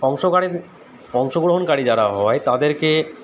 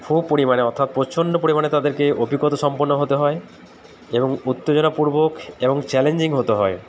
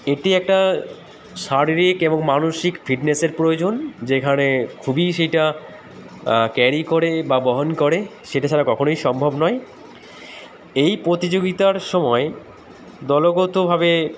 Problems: none marked